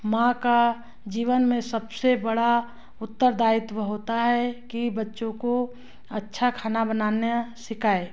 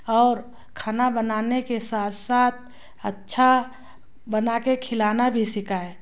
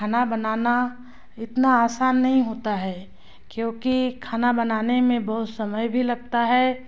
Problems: constant background noise